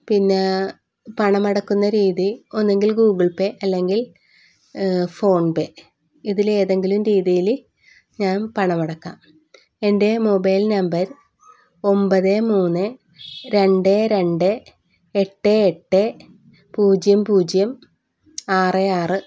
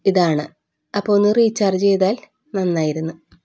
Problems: none marked